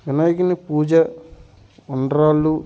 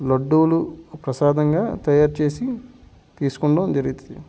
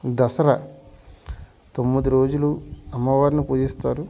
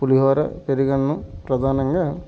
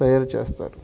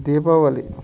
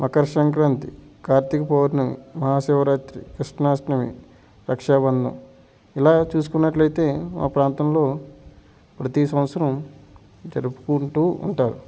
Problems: background sounds at intervals